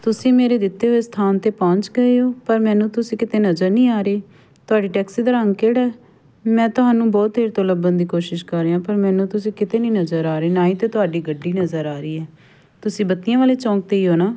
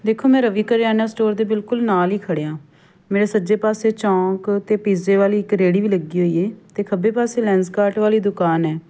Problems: none marked